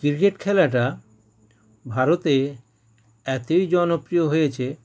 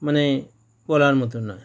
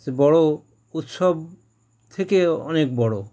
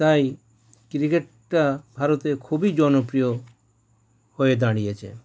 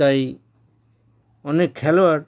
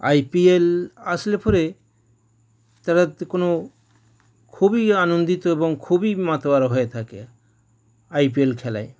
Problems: none marked